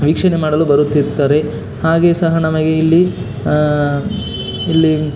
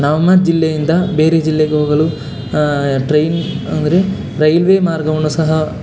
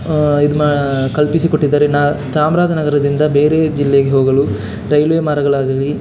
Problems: constant background noise